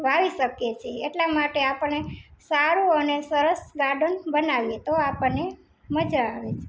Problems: background sounds at intervals